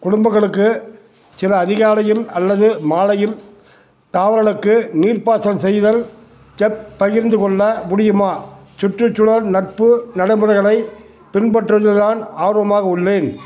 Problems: background sounds at intervals